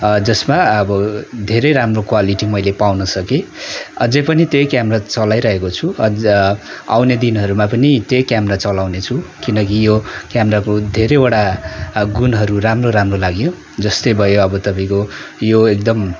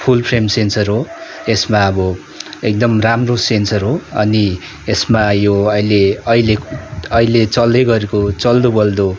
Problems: continuous background conversations